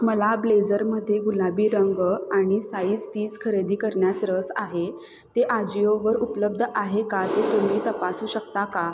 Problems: constant background noise